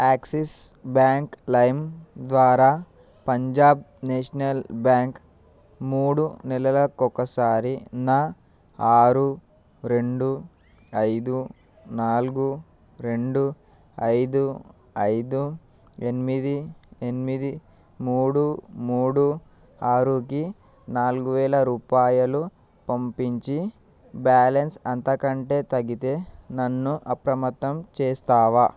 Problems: none marked